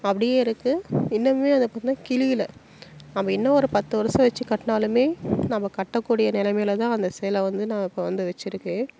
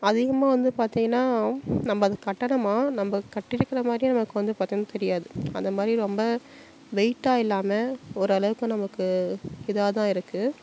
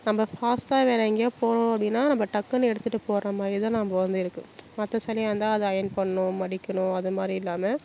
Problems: none marked